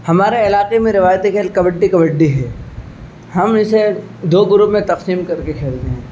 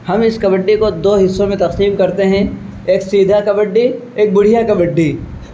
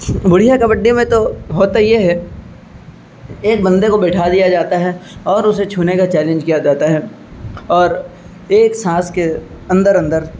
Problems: constant background noise